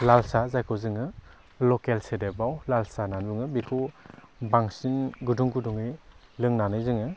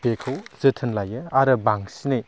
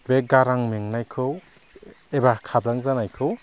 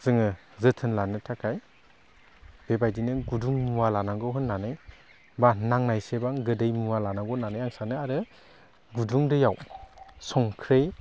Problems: none marked